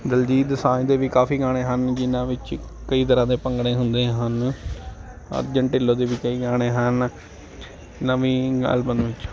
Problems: constant background noise, continuous background conversations